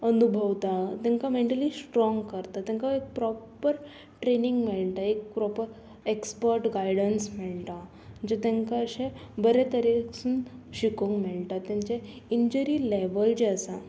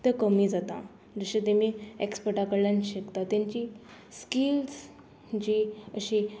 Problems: none marked